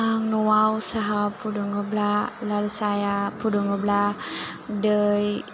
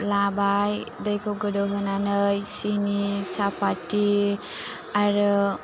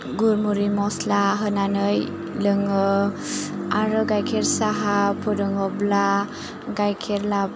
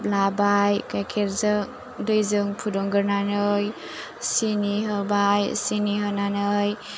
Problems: low volume